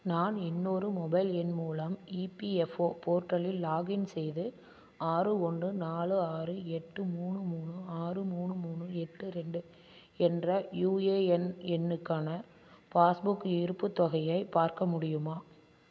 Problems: constant background noise